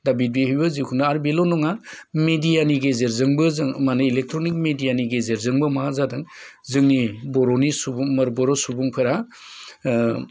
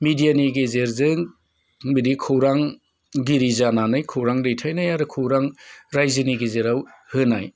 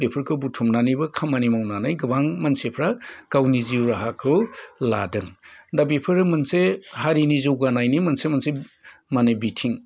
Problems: none marked